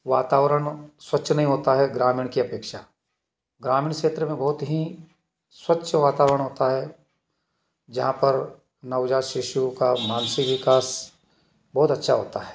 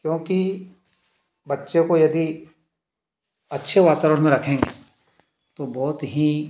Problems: background sounds at intervals